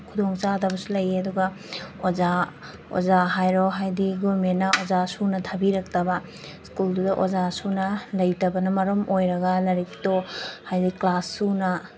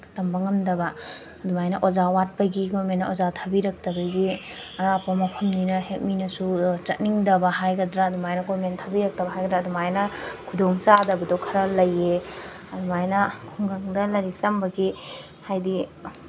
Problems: background sounds at intervals